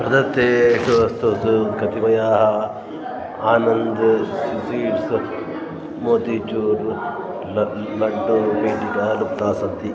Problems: continuous background conversations